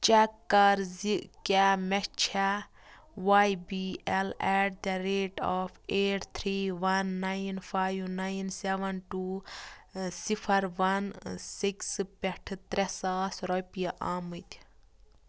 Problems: constant background noise